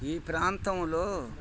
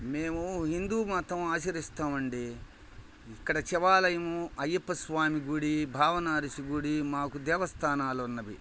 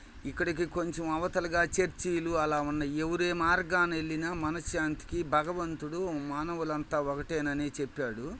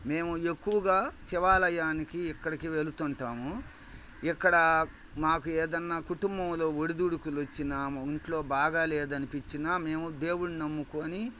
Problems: background sounds at intervals